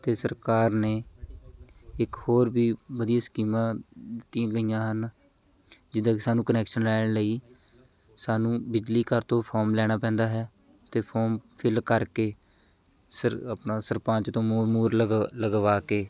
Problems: constant background noise, background conversations at intervals